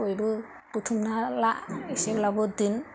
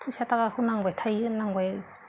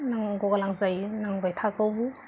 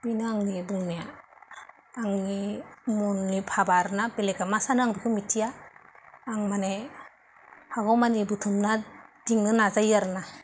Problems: constant background noise